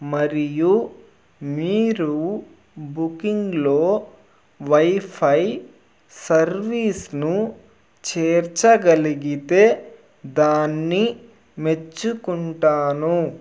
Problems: background sounds at intervals